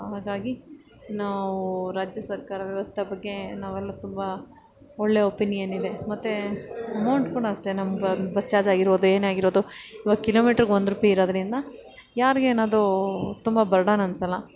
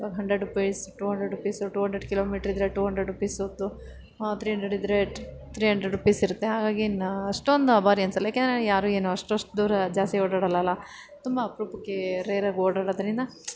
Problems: background sounds at intervals